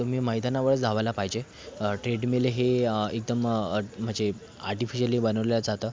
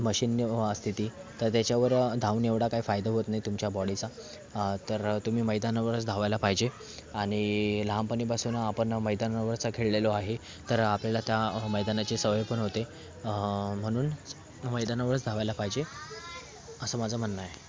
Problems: constant background noise